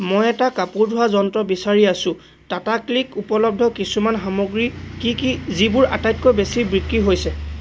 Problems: constant background noise